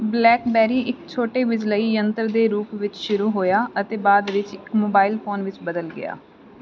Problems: none marked